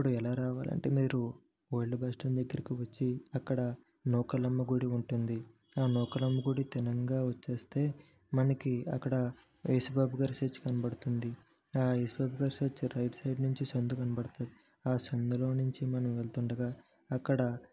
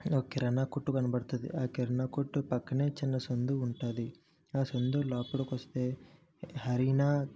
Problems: background sounds at intervals, low volume